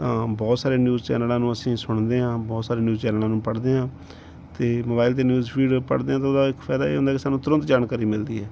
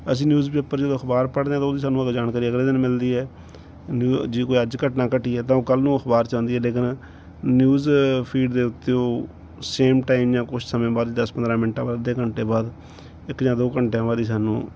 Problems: background sounds at intervals